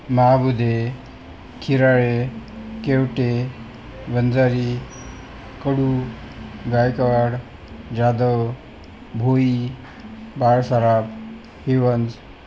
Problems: constant background noise